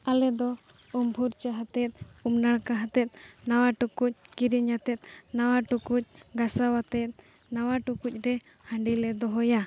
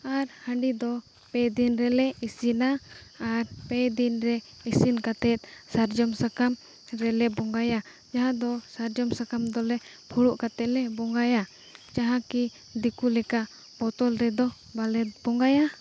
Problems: background sounds at intervals